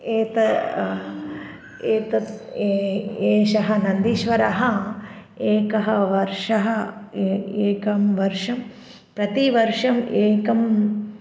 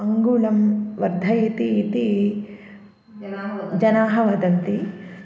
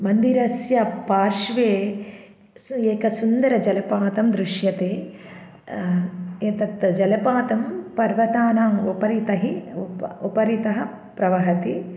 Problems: background conversations at intervals